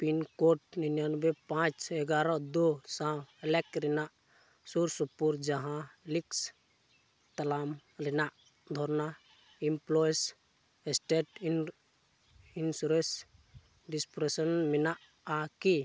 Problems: low volume